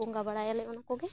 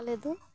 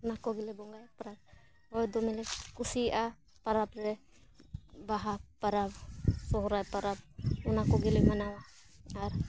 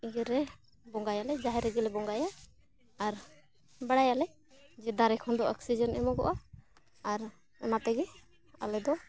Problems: background sounds at intervals